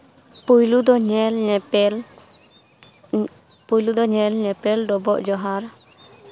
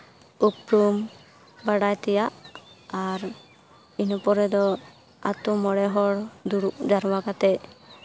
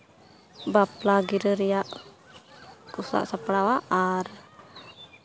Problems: background conversations at intervals